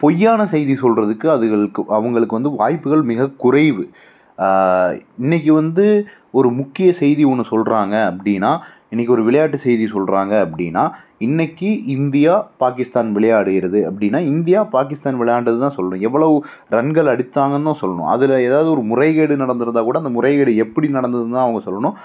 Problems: none marked